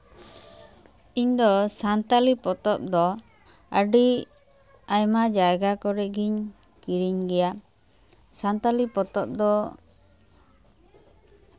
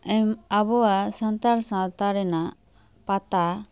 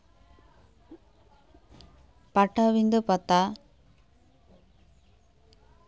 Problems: constant background noise